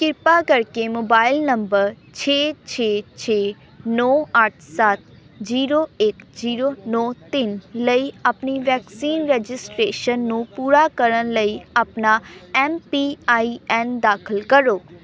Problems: none marked